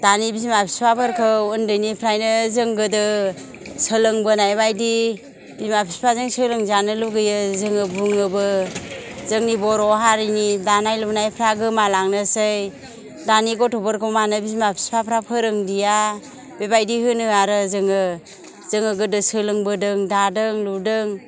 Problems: none marked